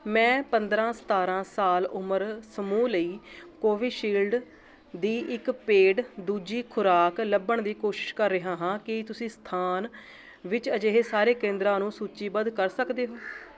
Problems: none marked